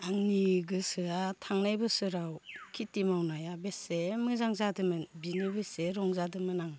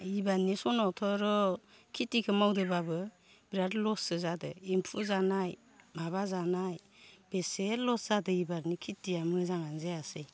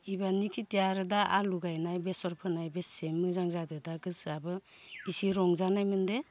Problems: none marked